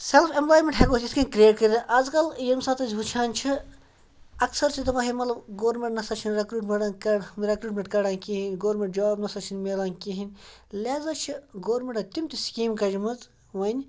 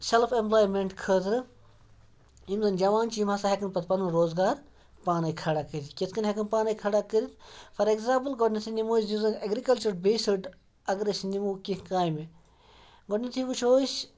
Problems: none marked